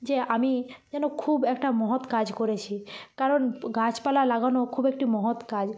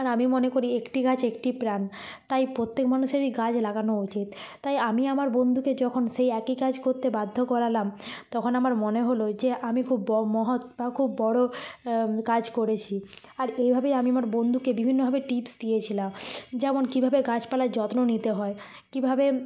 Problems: constant background noise